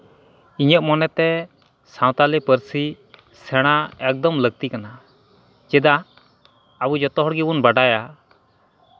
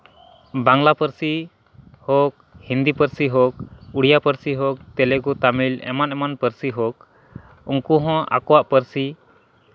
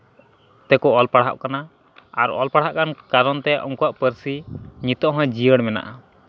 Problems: none marked